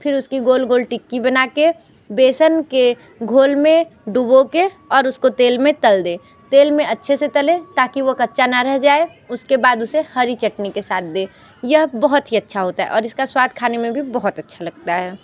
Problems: constant background noise, background conversations at intervals